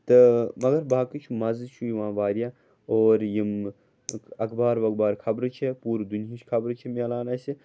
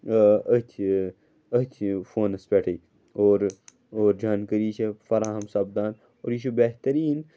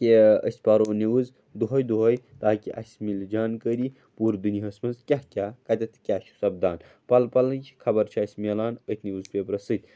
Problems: none marked